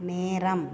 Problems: constant background noise